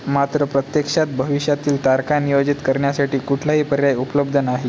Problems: constant background noise